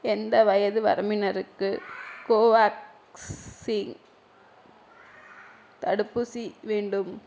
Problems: background conversations at intervals